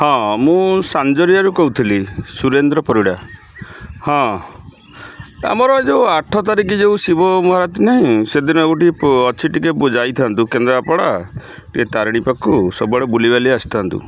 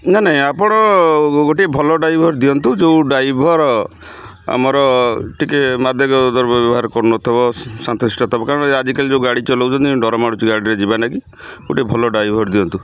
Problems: constant background noise